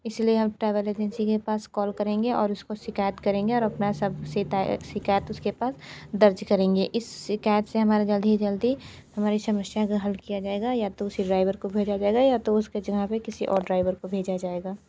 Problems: background sounds at intervals, background conversations at intervals